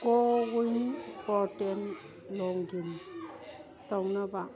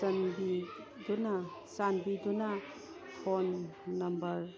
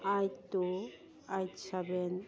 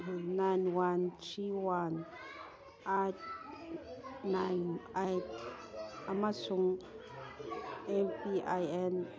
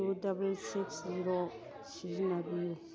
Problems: background conversations at intervals